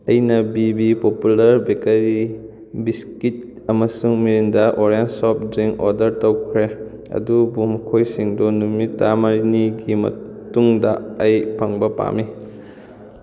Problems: constant background noise